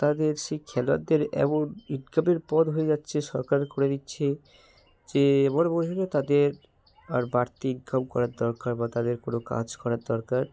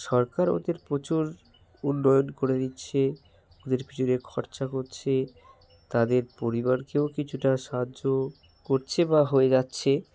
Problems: background sounds at intervals